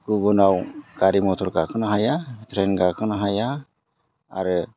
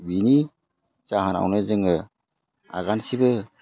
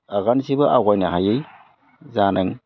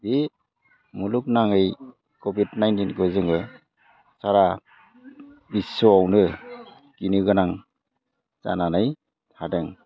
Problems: background sounds at intervals